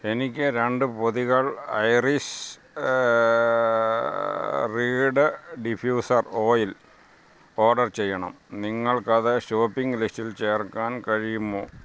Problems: none marked